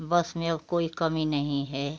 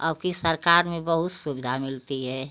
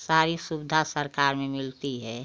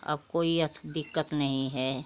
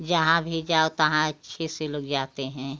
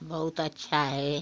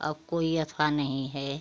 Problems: none marked